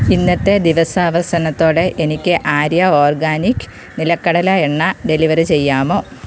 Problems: constant background noise